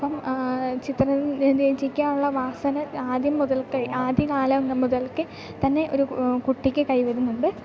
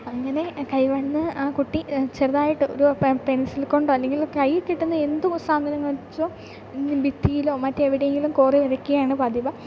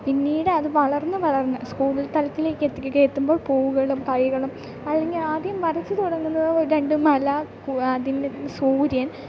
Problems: background sounds at intervals, low volume